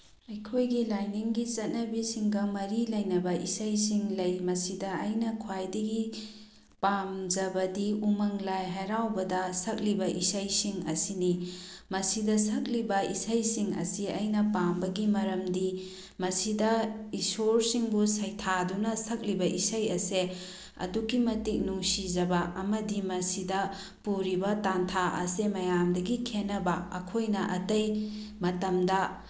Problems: background sounds at intervals